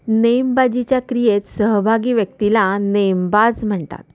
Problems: constant background noise, echo